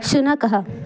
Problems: constant background noise, continuous background conversations